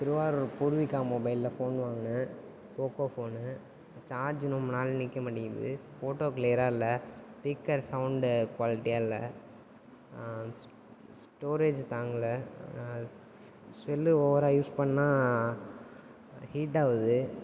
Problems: constant background noise